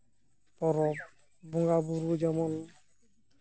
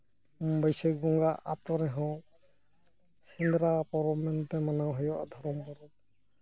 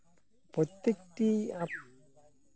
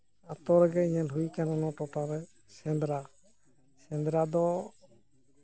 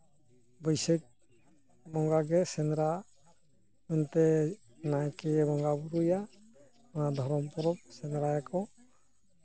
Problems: background sounds at intervals, low volume